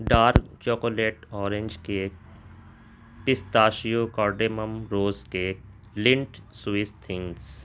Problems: constant background noise